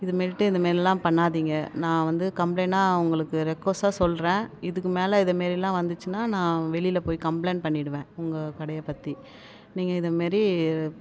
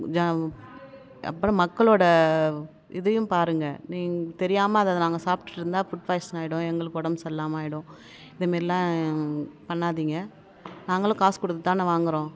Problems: background sounds at intervals